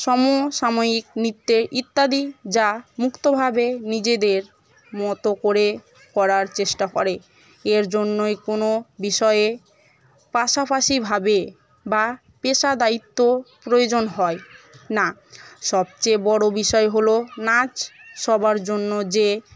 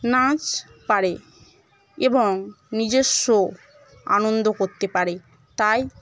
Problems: none marked